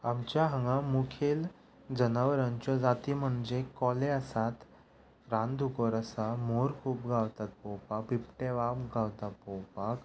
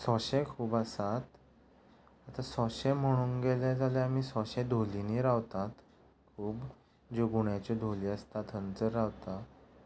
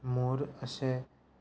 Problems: none marked